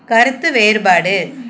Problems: none marked